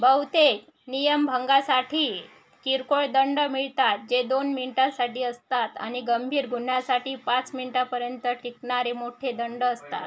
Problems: constant background noise, background conversations at intervals